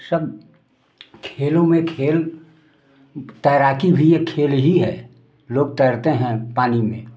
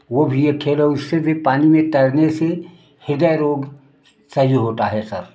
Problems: none marked